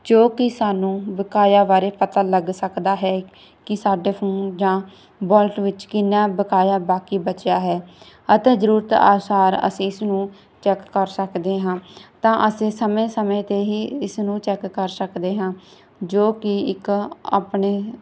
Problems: none marked